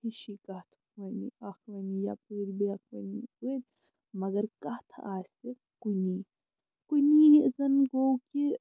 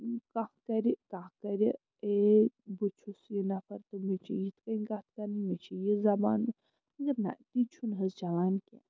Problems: low volume